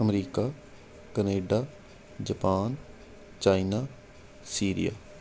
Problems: constant background noise